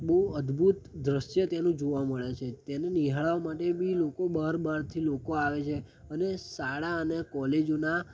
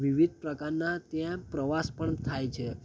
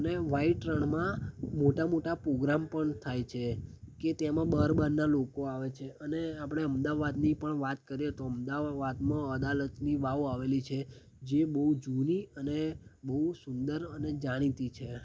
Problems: constant background noise